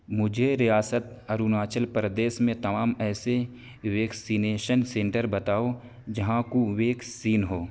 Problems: constant background noise